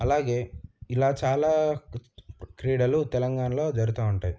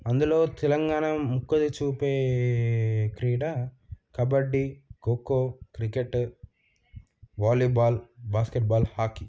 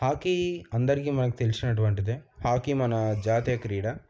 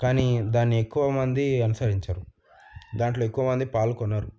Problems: background sounds at intervals